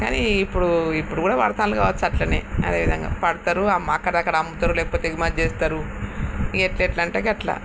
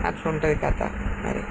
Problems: constant background noise